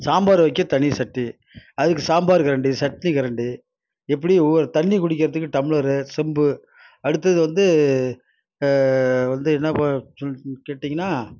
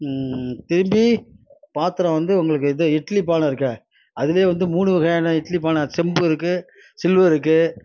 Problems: none marked